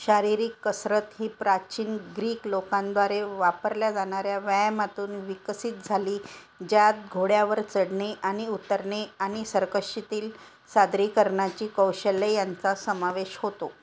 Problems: none marked